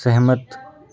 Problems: constant background noise, background conversations at intervals